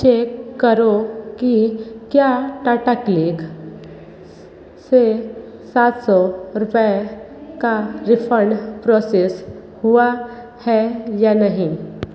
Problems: background conversations at intervals, echo